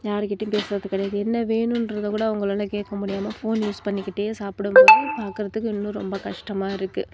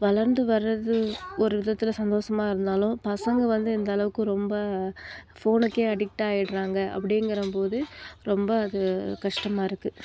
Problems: background sounds at intervals